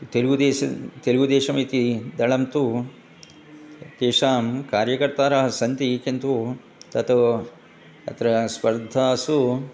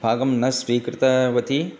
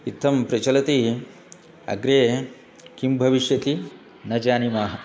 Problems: constant background noise, continuous background conversations